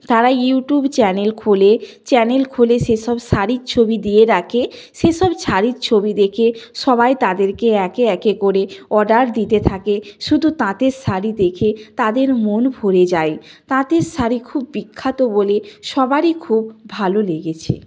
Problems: none marked